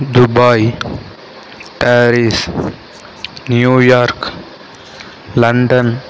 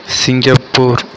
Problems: constant background noise